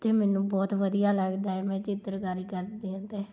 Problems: none marked